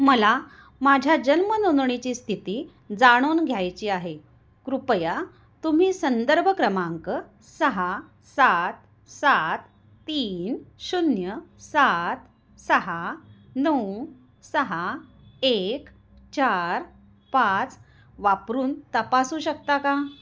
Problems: constant background noise